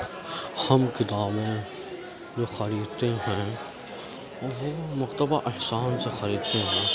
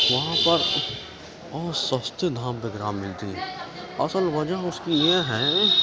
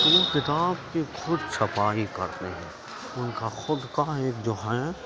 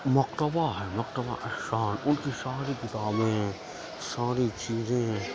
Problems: constant background noise, continuous background conversations, low volume